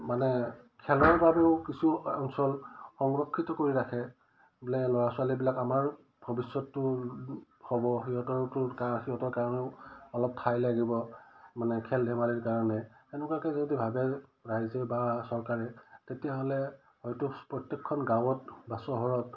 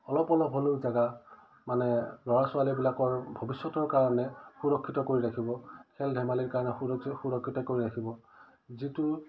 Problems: none marked